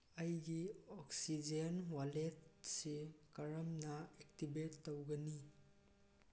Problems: background sounds at intervals